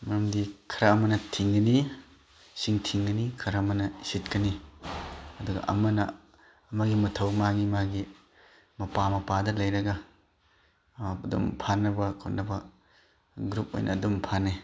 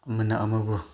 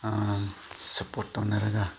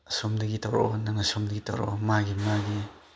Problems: background sounds at intervals, background conversations at intervals